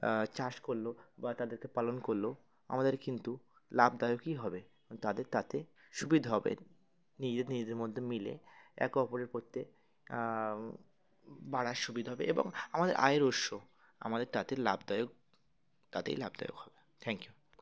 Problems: constant background noise, continuous background conversations